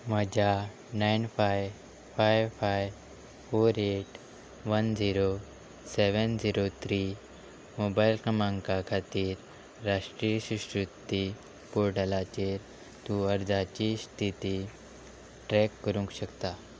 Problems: none marked